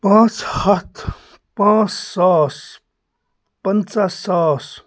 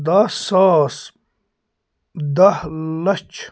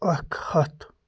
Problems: constant background noise